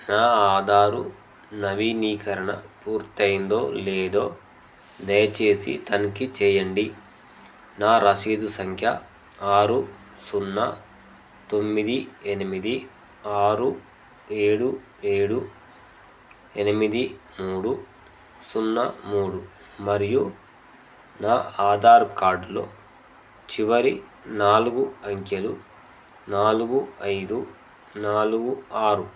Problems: constant background noise